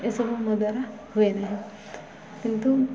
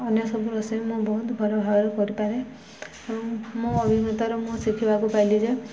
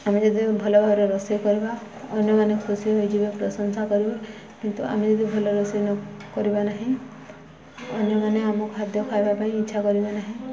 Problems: none marked